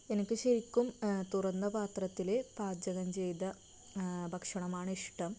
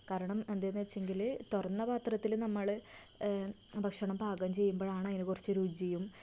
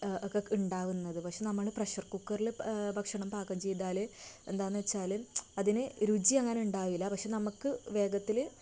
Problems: constant background noise, low volume